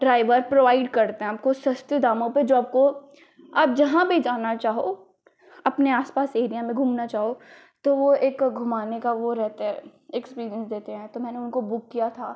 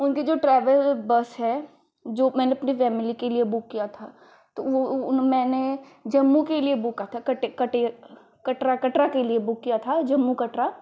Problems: constant background noise